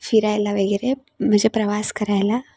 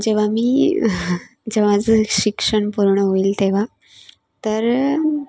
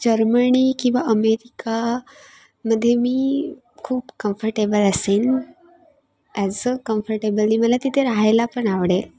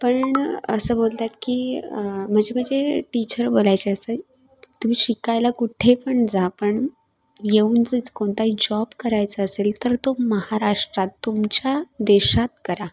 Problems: background sounds at intervals